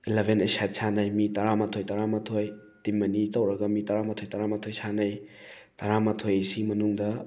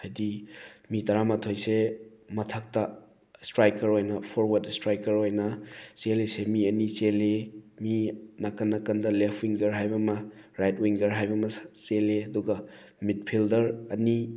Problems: background sounds at intervals